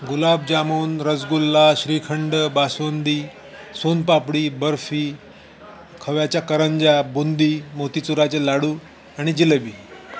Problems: constant background noise, continuous background conversations